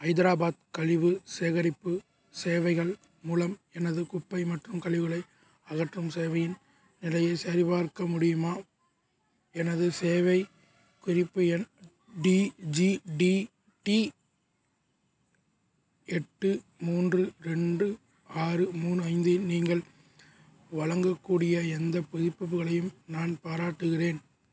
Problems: none marked